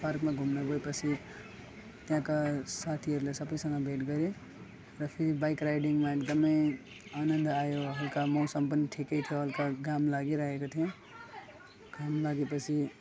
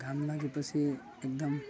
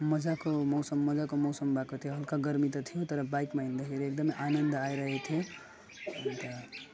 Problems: constant background noise, background conversations at intervals, low volume